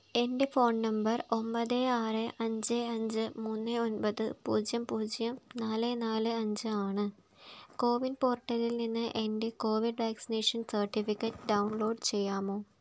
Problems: background sounds at intervals